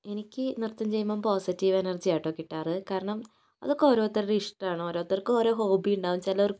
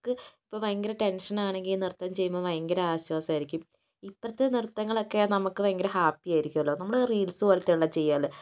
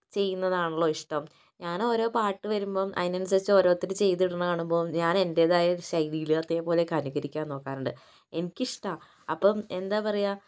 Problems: none marked